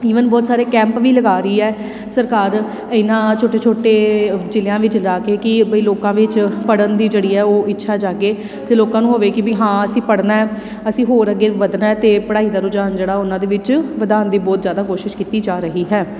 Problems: constant background noise